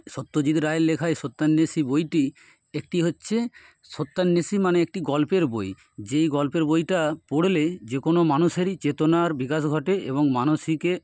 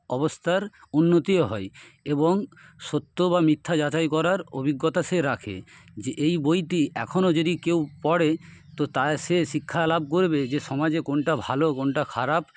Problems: none marked